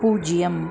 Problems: constant background noise